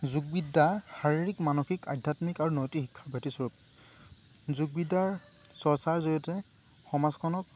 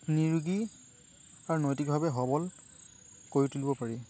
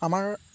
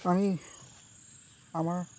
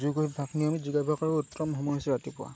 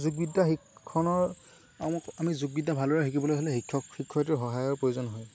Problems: constant background noise